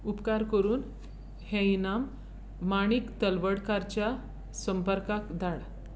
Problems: constant background noise